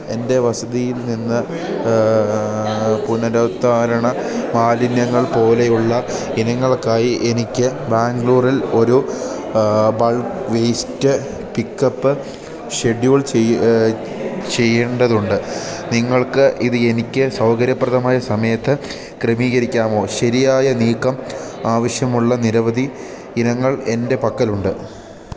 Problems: constant background noise